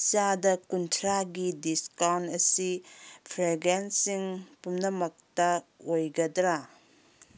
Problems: none marked